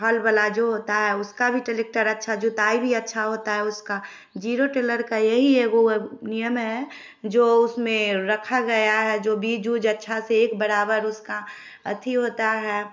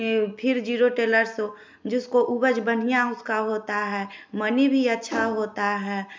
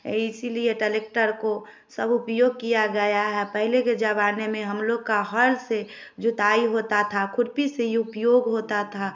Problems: none marked